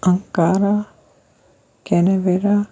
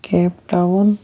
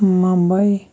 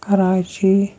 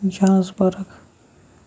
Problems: background sounds at intervals, low volume